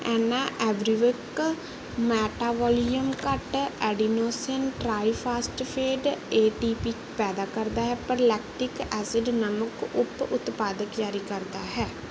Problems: background sounds at intervals